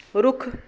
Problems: none marked